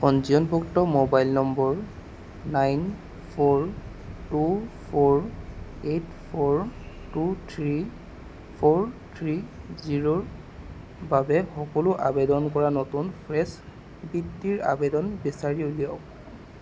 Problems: constant background noise